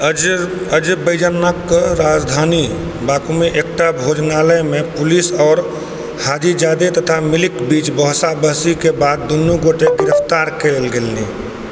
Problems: background sounds at intervals